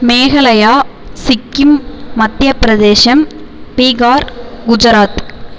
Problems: constant background noise